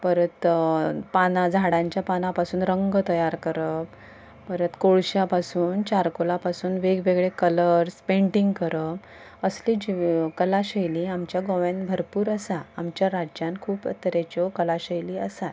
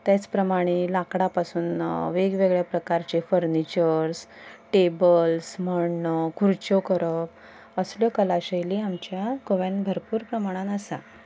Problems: background sounds at intervals